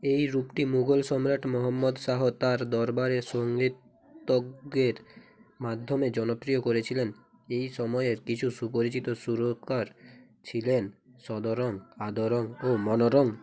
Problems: background conversations at intervals